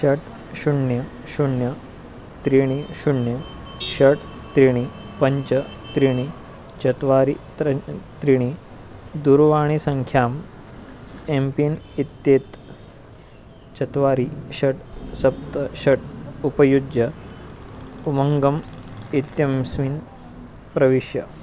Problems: constant background noise